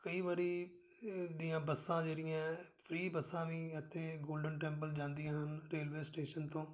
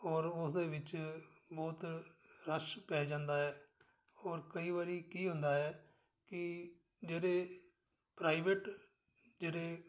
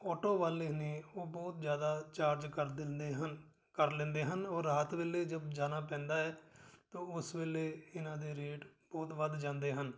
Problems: none marked